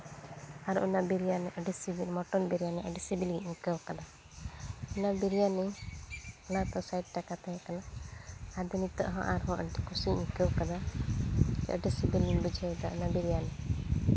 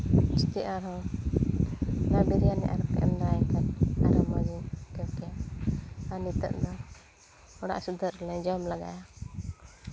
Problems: constant background noise